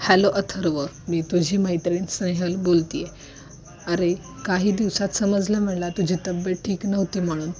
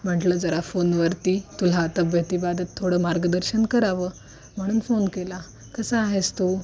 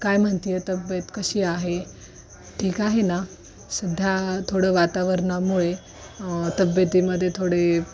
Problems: none marked